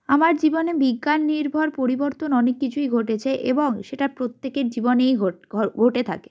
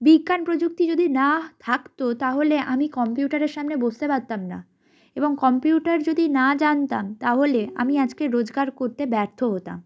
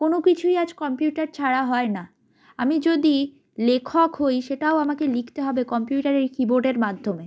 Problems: background sounds at intervals